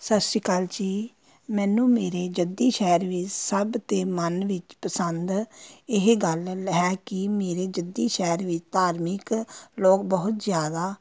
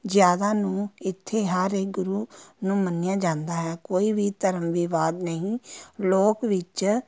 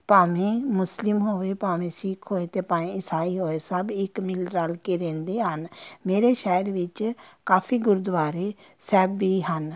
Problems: constant background noise, background conversations at intervals